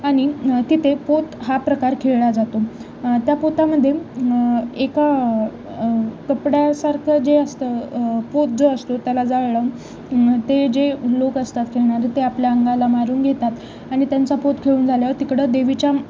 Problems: constant background noise, continuous background conversations